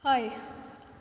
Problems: none marked